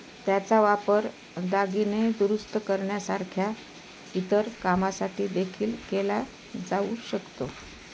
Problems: constant background noise